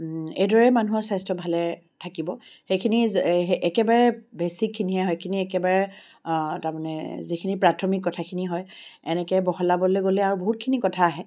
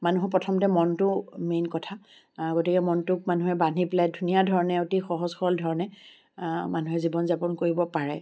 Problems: background sounds at intervals